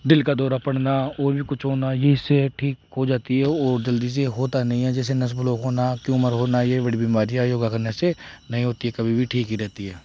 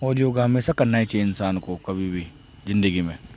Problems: background sounds at intervals